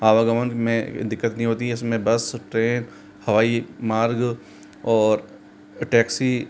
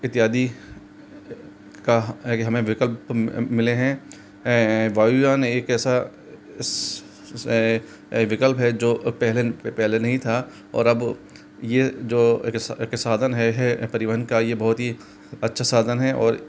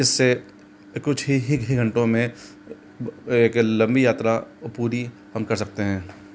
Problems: constant background noise